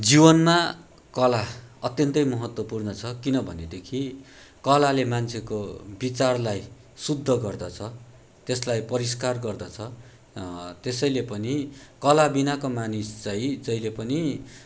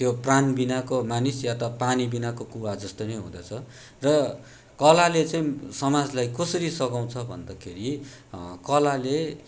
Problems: background sounds at intervals